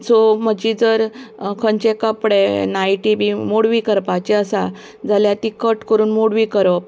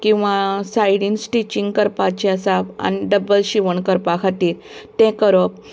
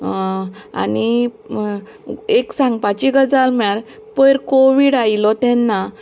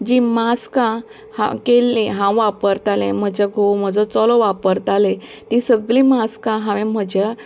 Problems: constant background noise